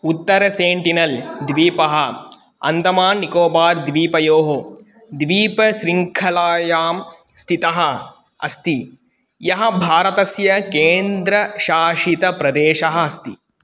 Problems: none marked